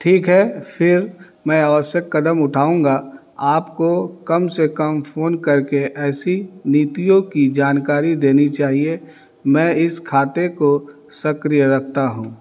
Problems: none marked